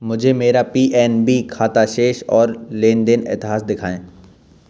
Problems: background sounds at intervals